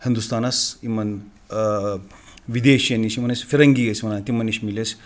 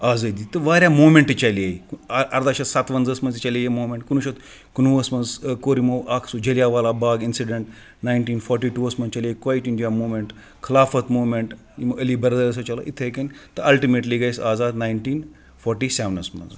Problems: none marked